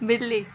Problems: none marked